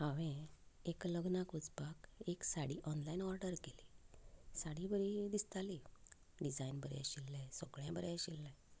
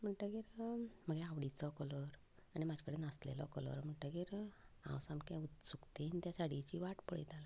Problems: none marked